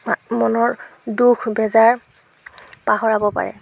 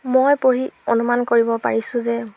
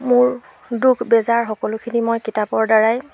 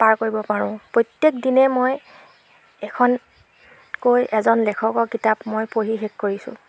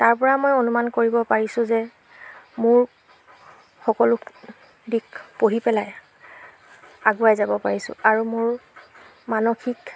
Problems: background sounds at intervals